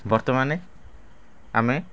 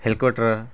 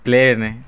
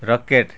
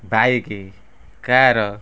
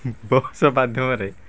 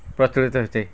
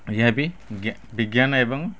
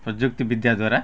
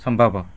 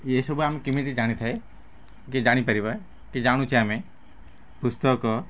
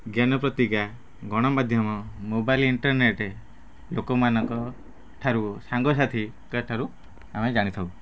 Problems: background sounds at intervals, low volume